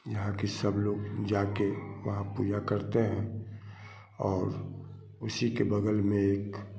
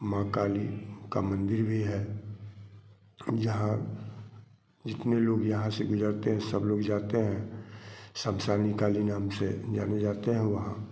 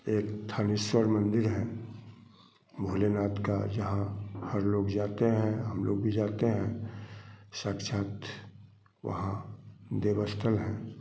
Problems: constant background noise